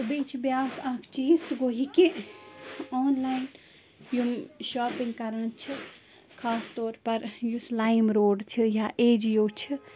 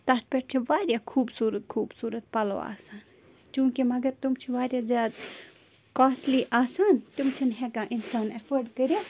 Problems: constant background noise